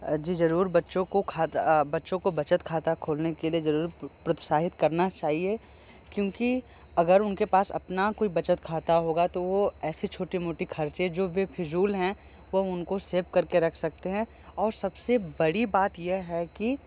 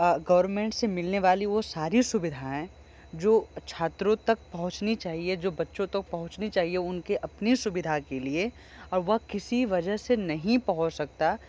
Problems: constant background noise